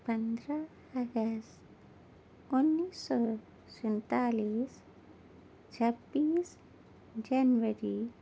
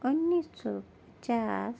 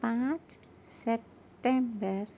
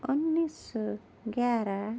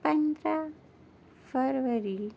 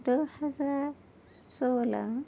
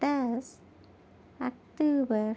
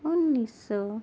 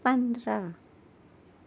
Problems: none marked